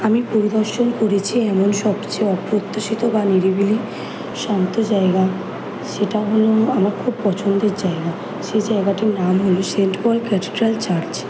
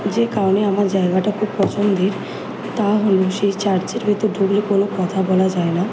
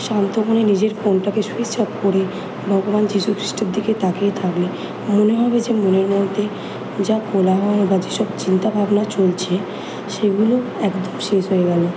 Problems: none marked